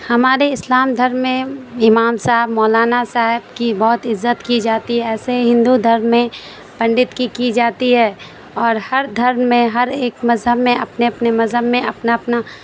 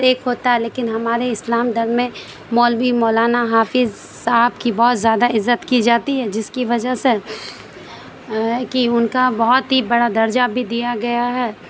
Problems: constant background noise